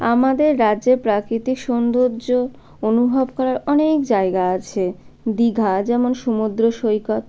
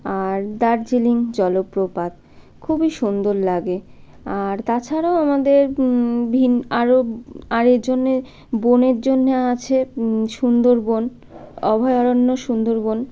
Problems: none marked